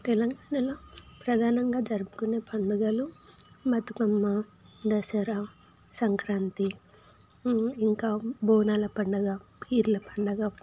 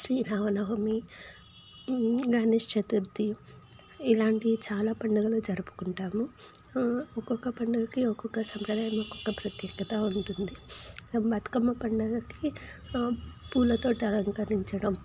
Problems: constant background noise